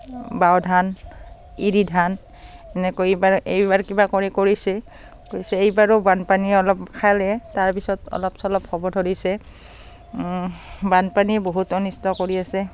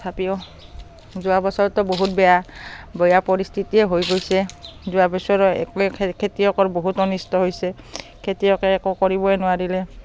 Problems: background sounds at intervals, background conversations at intervals